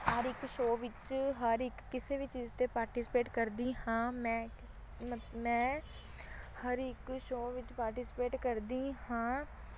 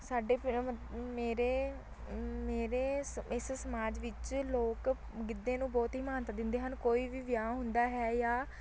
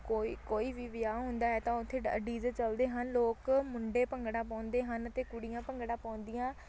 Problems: none marked